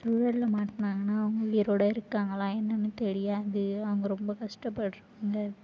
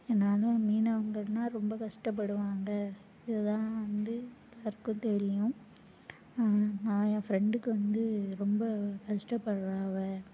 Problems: low volume